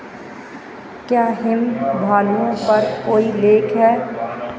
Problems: none marked